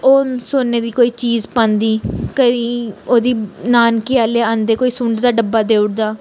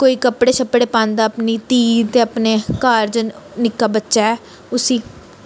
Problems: none marked